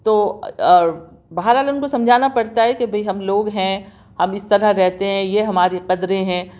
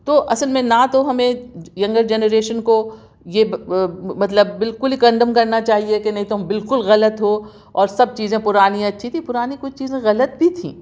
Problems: none marked